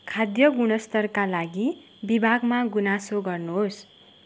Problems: none marked